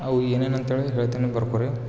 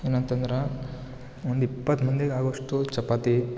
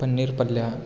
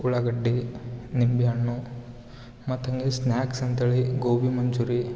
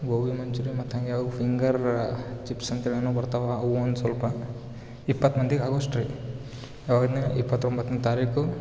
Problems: background sounds at intervals